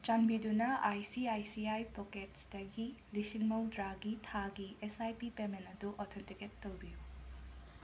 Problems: constant background noise